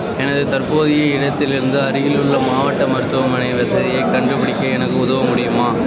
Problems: constant background noise, continuous background conversations